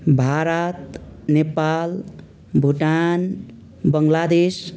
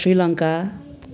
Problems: none marked